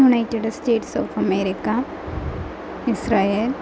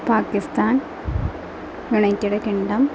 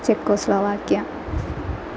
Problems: constant background noise